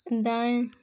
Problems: constant background noise